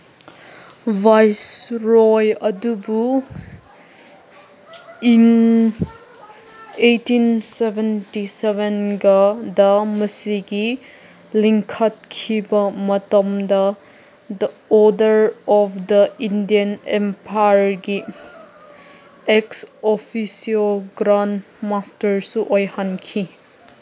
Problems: constant background noise